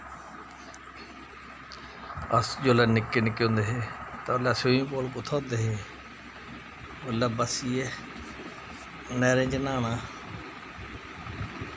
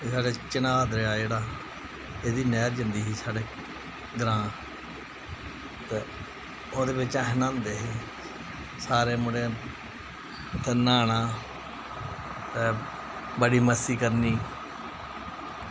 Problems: constant background noise